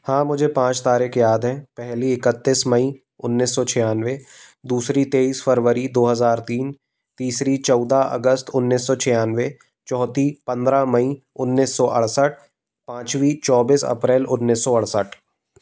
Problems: constant background noise